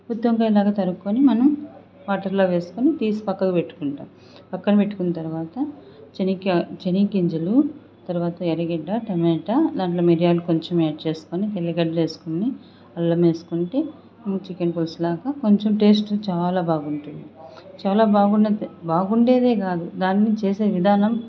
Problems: none marked